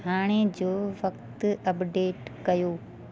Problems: constant background noise